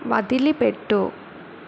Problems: constant background noise